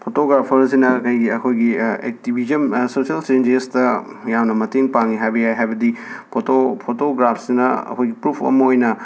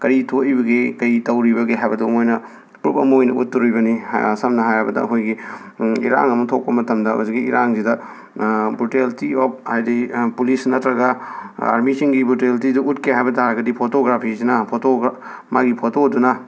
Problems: background sounds at intervals